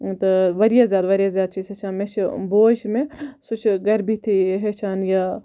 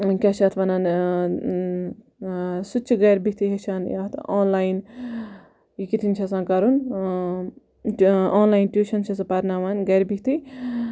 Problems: none marked